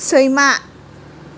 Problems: none marked